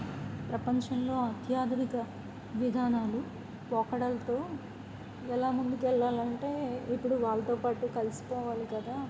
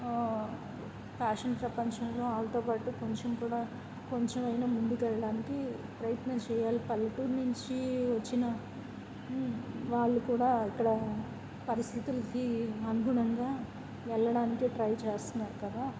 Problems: constant background noise